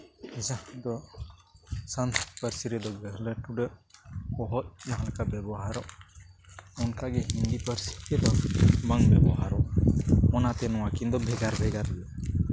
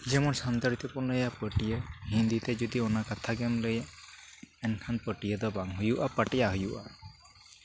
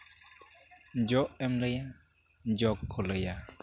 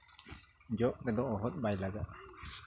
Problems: constant background noise